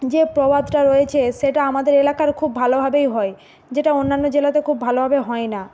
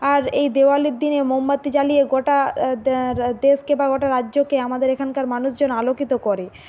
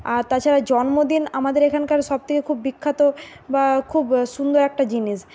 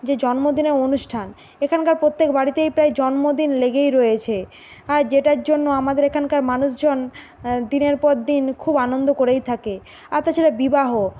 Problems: none marked